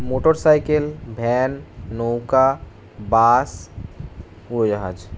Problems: constant background noise